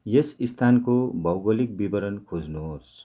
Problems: none marked